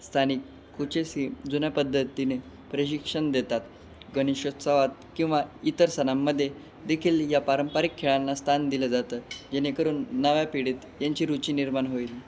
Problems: constant background noise